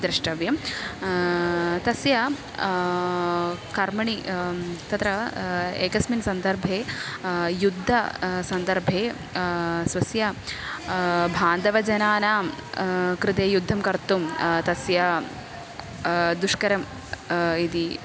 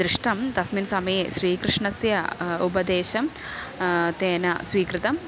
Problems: constant background noise